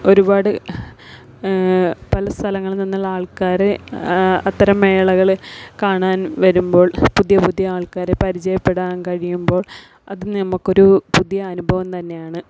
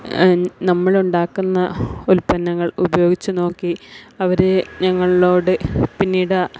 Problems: background sounds at intervals